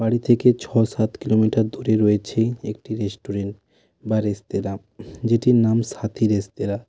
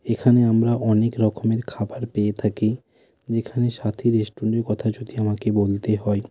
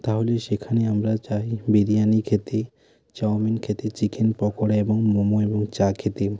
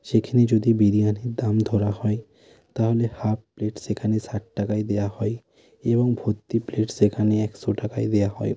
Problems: constant background noise